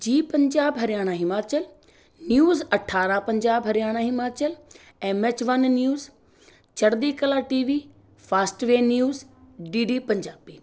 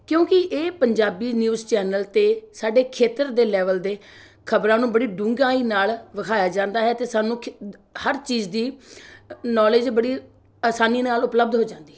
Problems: background sounds at intervals